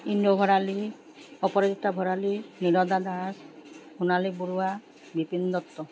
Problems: constant background noise